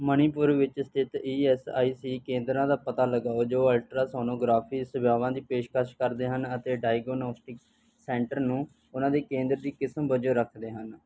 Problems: background sounds at intervals